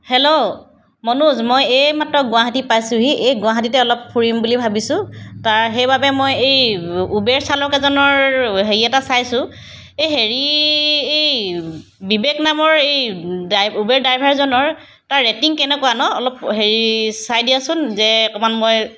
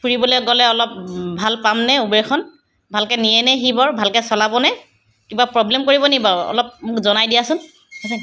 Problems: background sounds at intervals